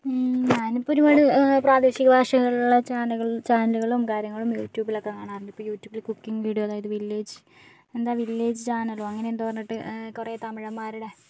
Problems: none marked